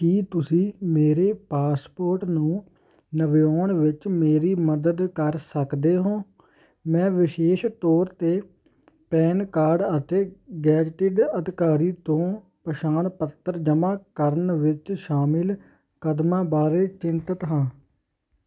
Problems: constant background noise